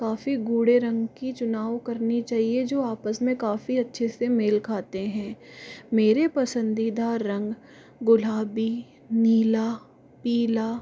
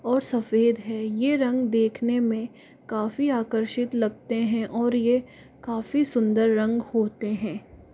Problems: background sounds at intervals